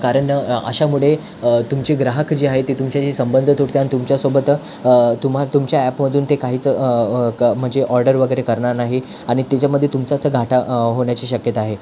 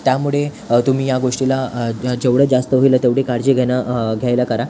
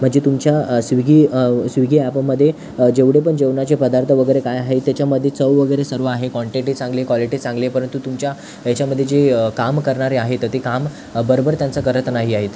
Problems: constant background noise